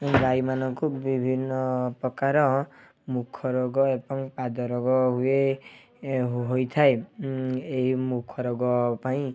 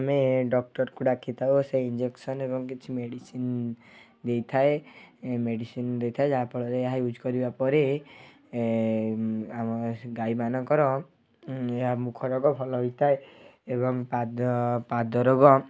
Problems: background sounds at intervals